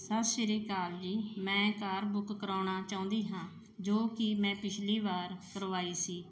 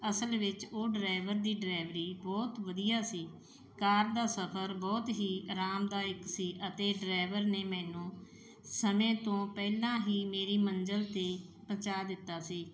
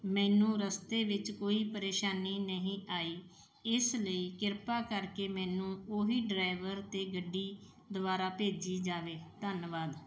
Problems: background sounds at intervals